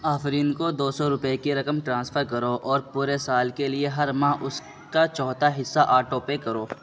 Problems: constant background noise